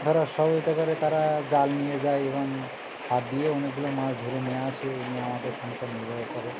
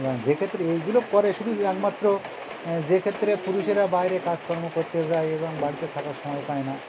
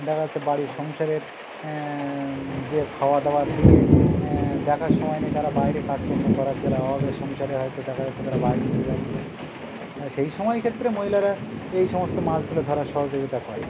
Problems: constant background noise, continuous background conversations